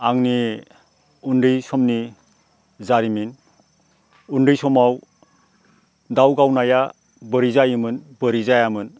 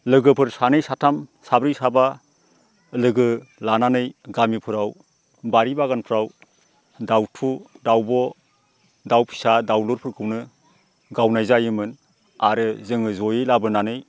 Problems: none marked